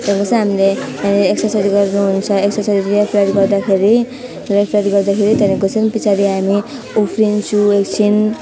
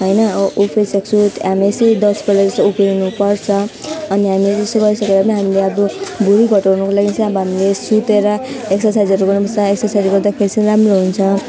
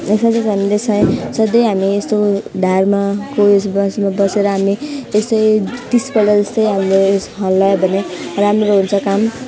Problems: constant background noise